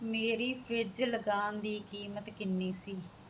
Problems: constant background noise